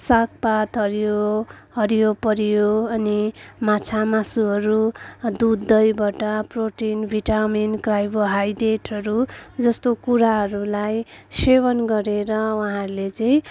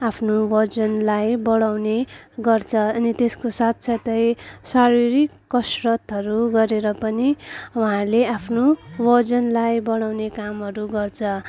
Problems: none marked